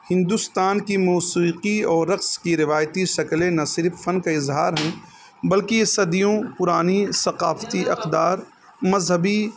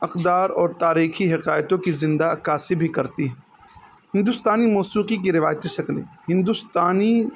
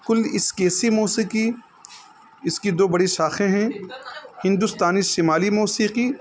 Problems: constant background noise